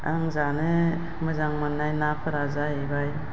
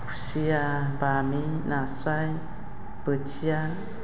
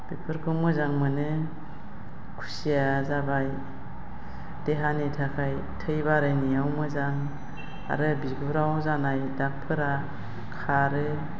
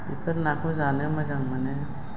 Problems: constant background noise